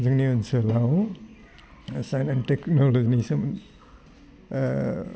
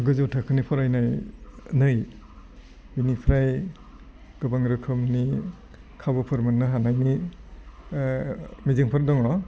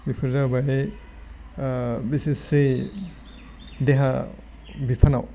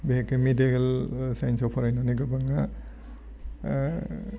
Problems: low volume